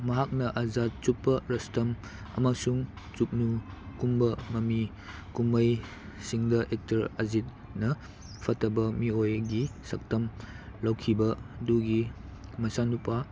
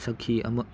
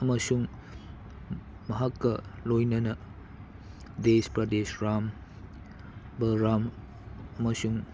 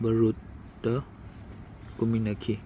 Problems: constant background noise